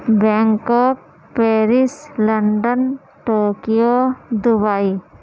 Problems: constant background noise